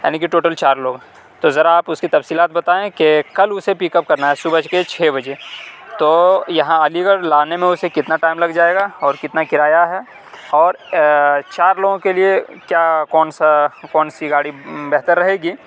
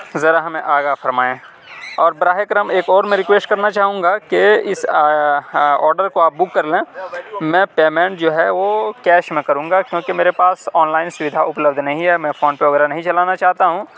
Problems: none marked